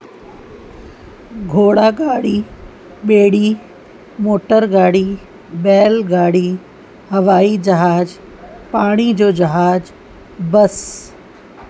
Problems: constant background noise